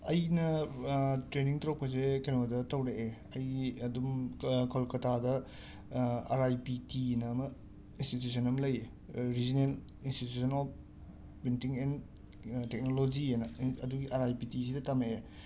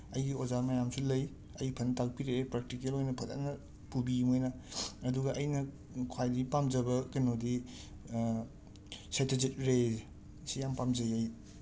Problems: background sounds at intervals